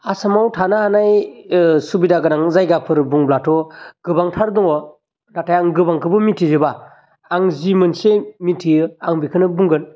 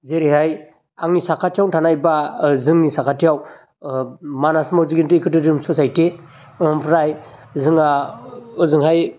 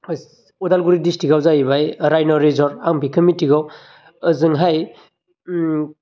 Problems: constant background noise